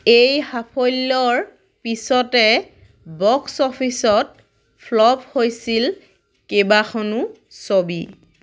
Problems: none marked